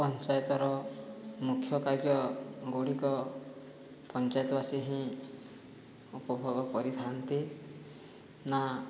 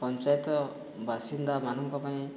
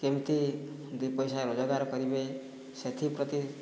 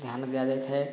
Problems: low volume